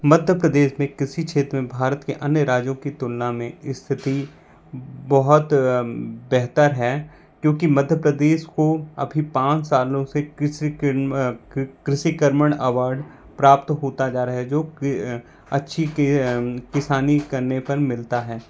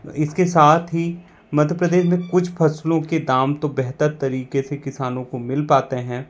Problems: constant background noise